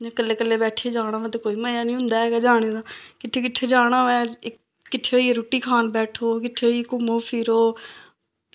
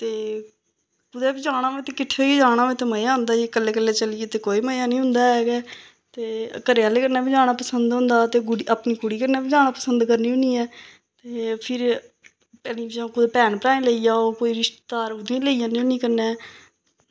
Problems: none marked